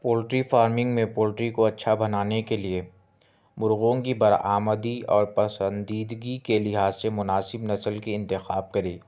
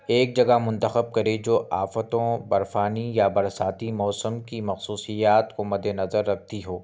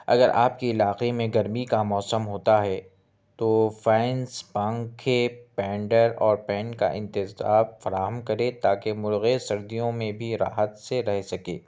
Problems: none marked